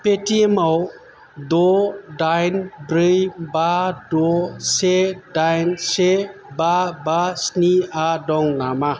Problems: none marked